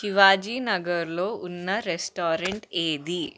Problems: background conversations at intervals